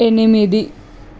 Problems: constant background noise